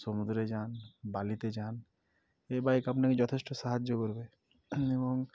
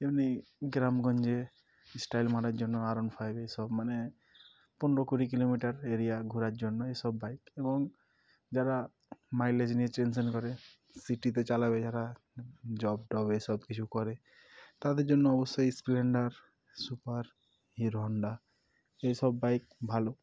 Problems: none marked